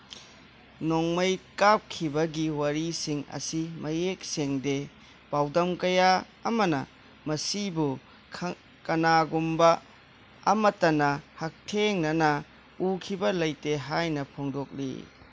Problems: constant background noise